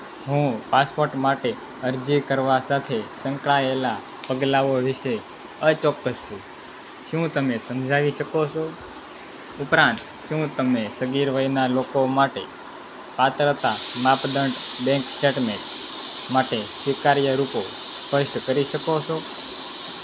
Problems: constant background noise